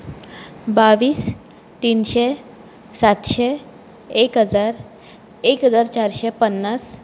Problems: background sounds at intervals